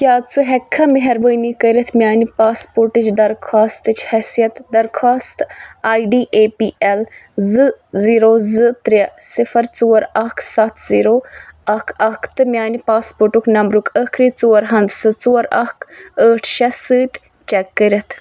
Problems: constant background noise